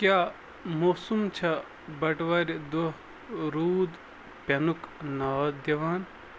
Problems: constant background noise